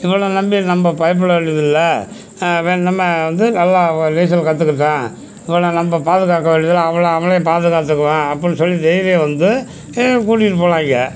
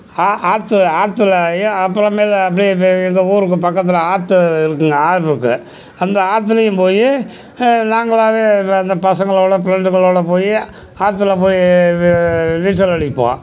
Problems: constant background noise, background conversations at intervals